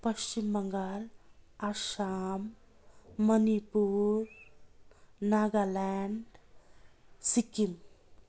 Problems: constant background noise